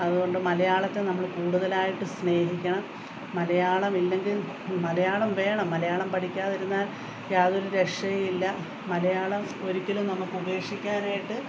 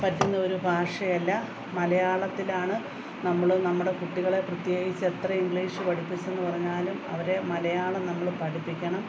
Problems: background sounds at intervals